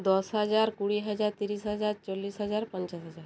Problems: background sounds at intervals